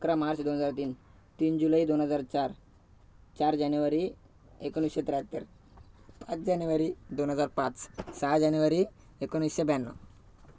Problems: background sounds at intervals